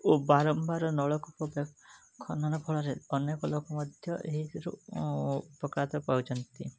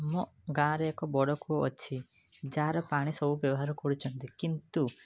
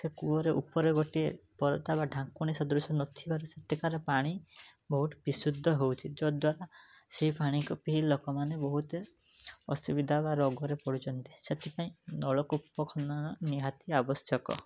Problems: background sounds at intervals, background conversations at intervals